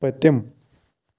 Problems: constant background noise